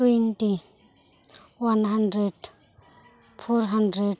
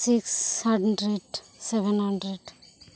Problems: none marked